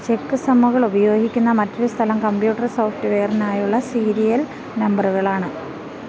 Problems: constant background noise